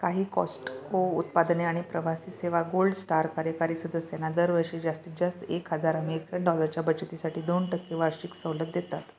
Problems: none marked